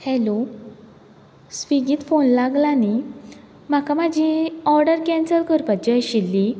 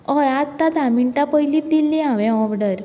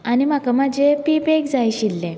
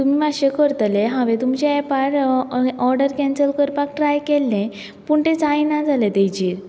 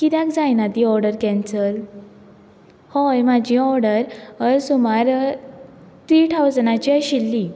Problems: background sounds at intervals